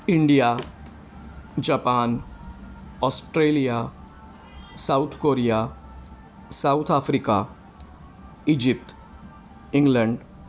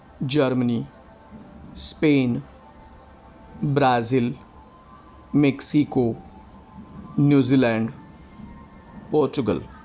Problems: none marked